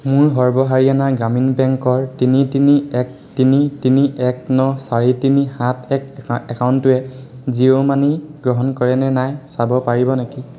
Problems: none marked